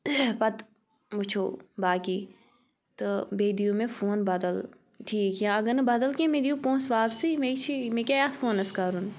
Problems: background sounds at intervals